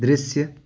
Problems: none marked